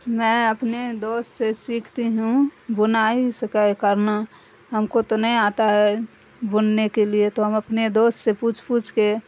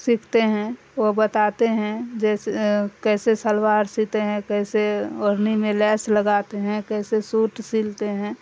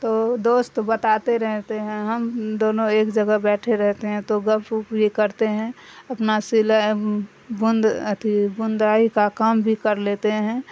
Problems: constant background noise